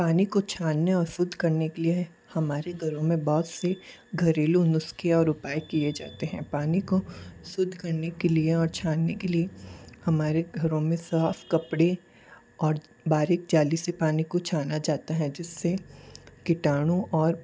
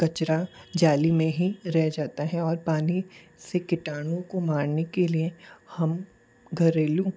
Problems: constant background noise